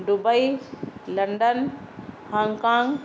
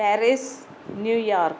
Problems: background sounds at intervals